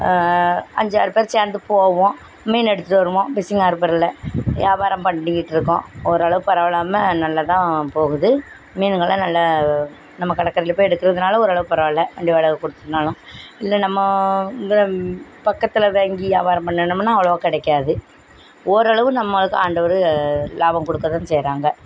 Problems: background sounds at intervals